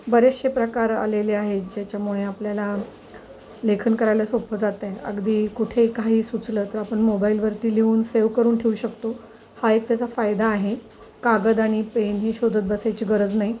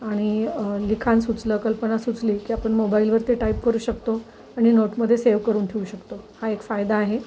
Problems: constant background noise